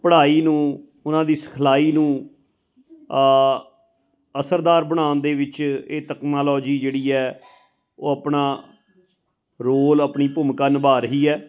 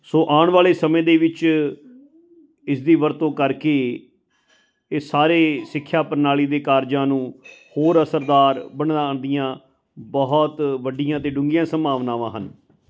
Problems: constant background noise, background conversations at intervals